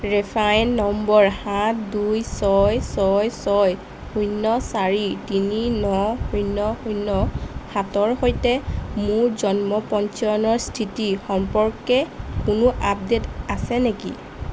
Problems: constant background noise